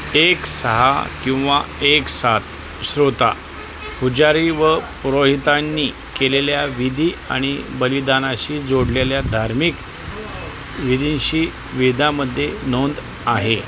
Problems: constant background noise, background conversations at intervals